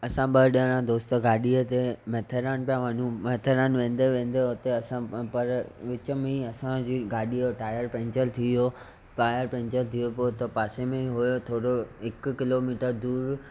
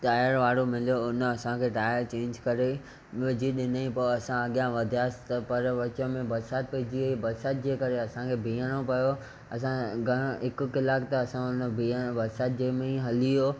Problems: none marked